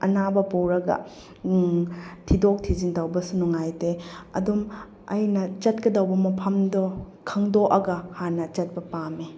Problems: none marked